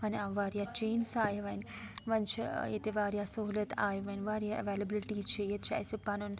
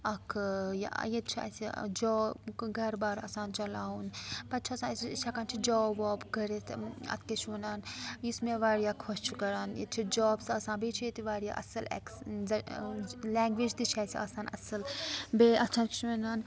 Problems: background sounds at intervals, background conversations at intervals